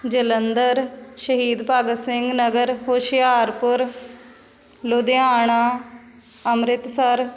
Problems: constant background noise